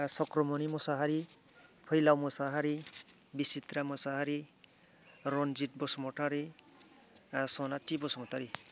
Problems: low volume